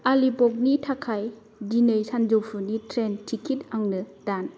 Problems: none marked